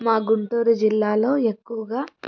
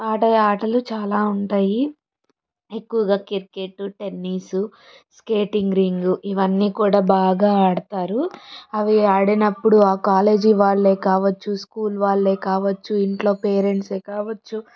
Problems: background sounds at intervals